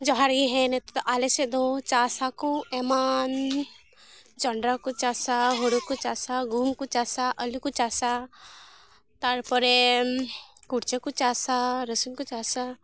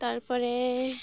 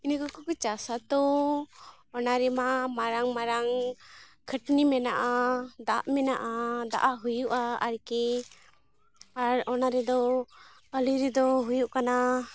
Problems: background sounds at intervals